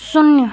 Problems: constant background noise, continuous background conversations